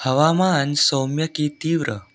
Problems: background sounds at intervals